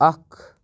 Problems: none marked